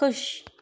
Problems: none marked